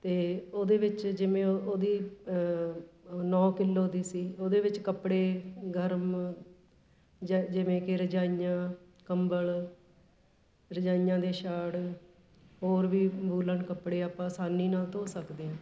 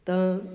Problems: background sounds at intervals